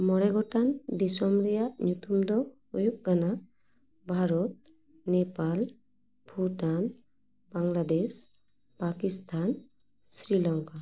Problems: echo